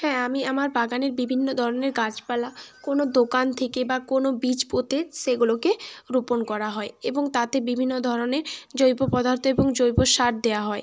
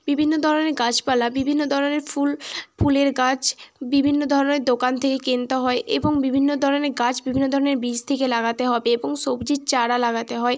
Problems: constant background noise